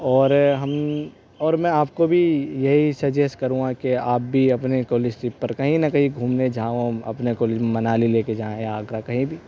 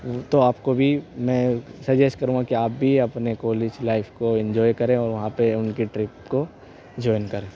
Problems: constant background noise, background conversations at intervals